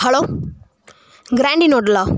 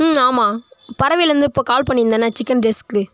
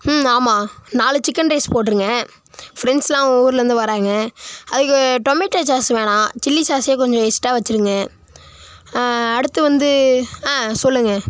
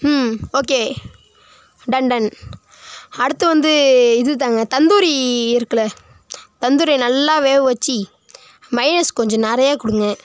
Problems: background sounds at intervals